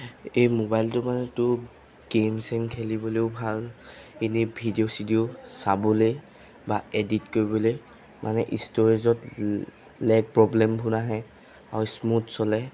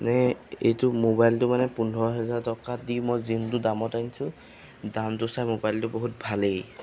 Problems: constant background noise